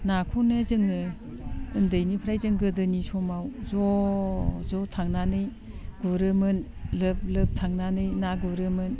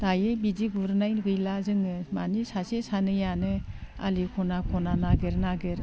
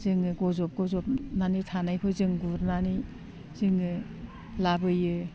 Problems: none marked